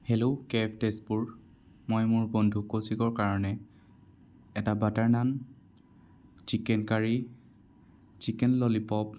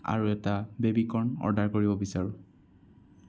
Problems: none marked